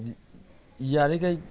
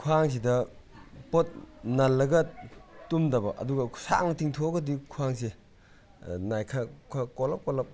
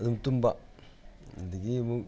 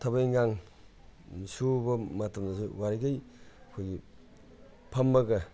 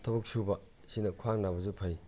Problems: constant background noise